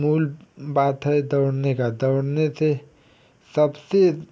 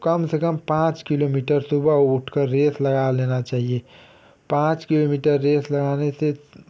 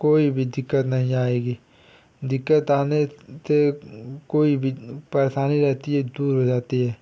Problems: constant background noise